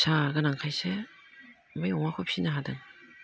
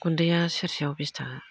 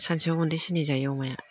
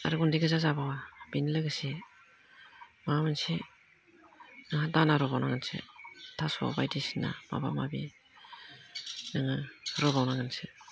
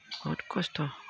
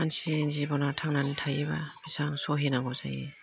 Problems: low volume